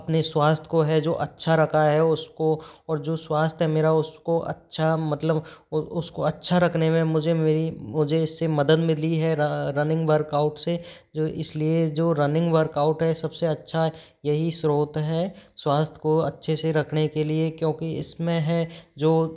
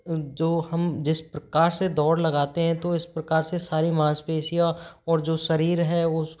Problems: background sounds at intervals